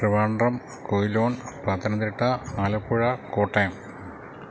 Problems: constant background noise